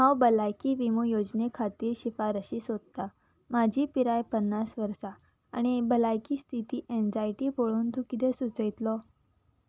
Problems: none marked